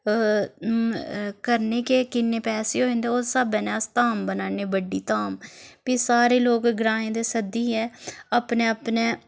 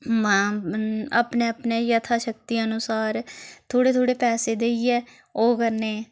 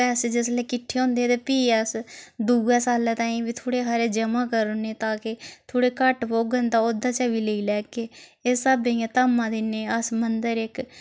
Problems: background sounds at intervals